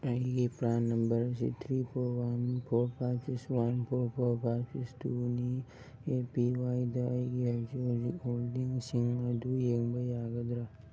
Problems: background sounds at intervals